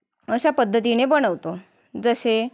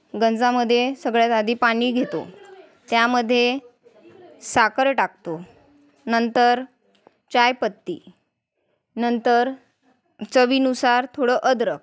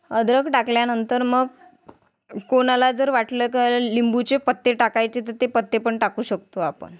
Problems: constant background noise, background conversations at intervals